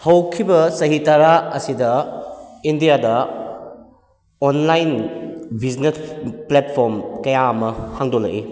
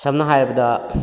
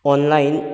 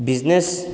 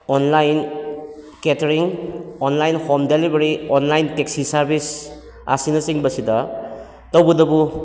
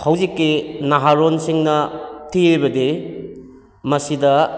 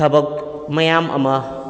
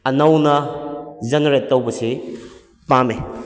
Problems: echo